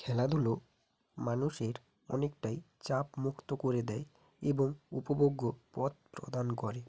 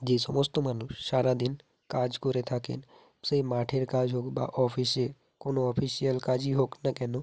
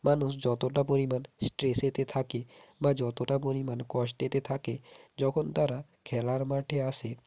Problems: none marked